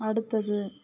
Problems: none marked